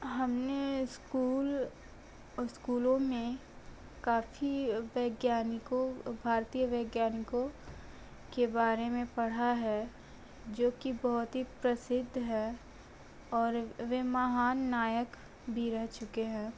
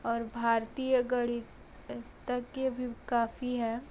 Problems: background sounds at intervals